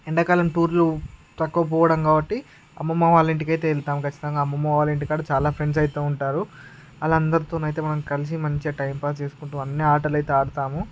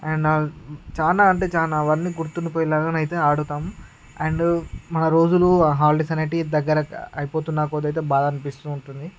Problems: none marked